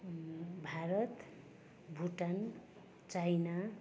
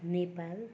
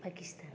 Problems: continuous background conversations